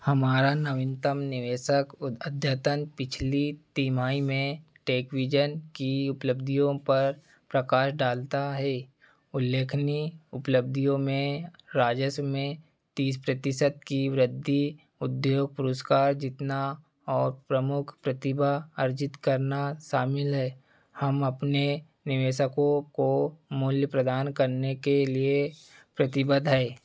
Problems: background sounds at intervals